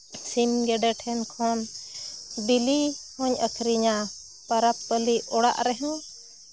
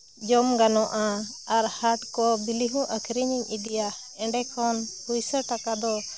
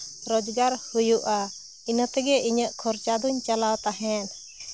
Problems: none marked